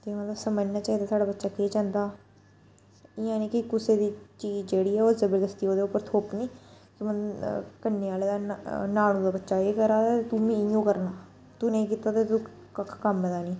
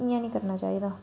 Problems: background sounds at intervals